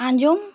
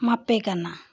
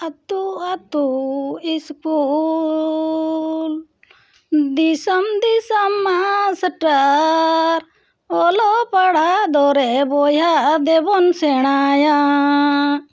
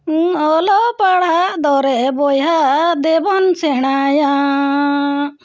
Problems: background sounds at intervals